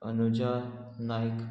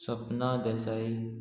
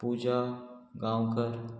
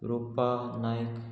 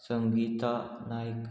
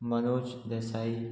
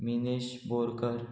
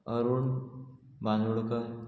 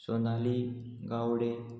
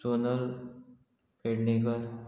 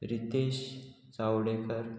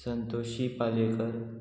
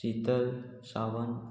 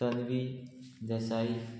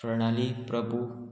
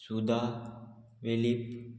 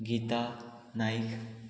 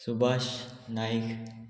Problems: constant background noise, continuous background conversations